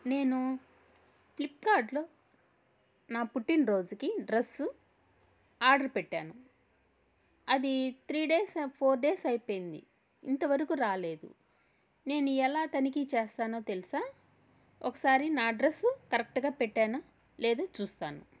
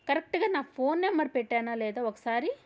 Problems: none marked